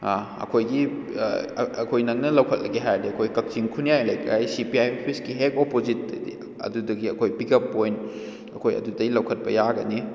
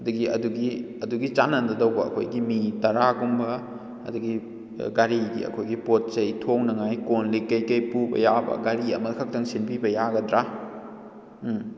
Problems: echo